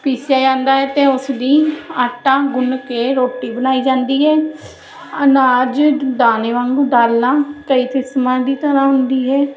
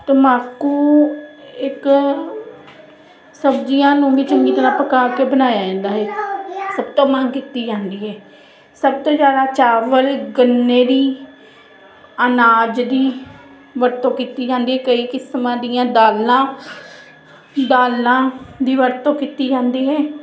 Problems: constant background noise